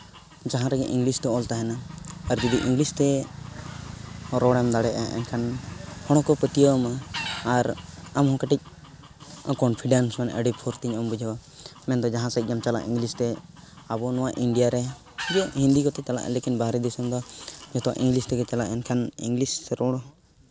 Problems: background sounds at intervals, background conversations at intervals